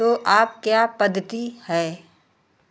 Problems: background sounds at intervals